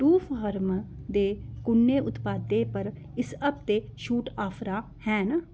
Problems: background sounds at intervals